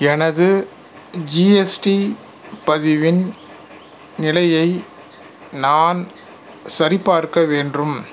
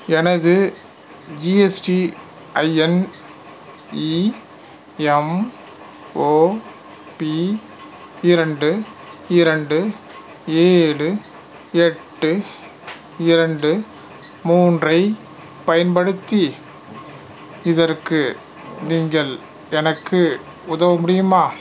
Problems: background sounds at intervals